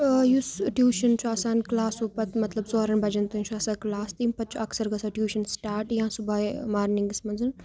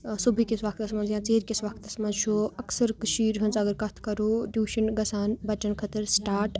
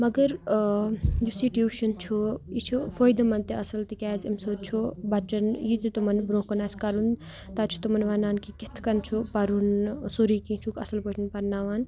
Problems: none marked